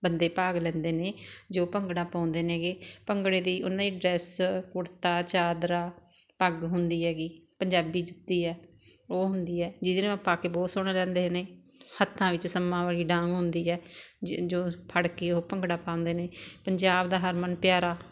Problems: constant background noise